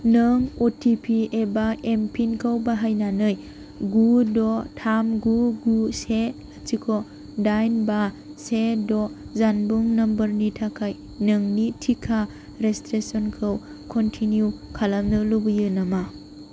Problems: constant background noise